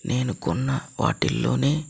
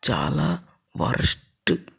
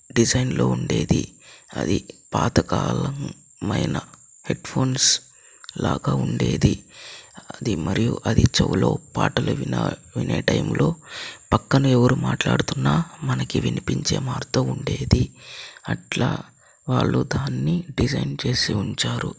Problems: constant background noise, low volume